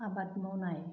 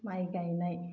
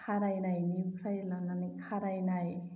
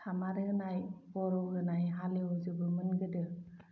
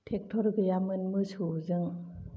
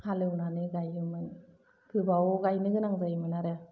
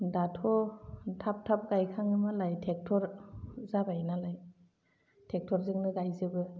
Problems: low volume